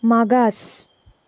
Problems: none marked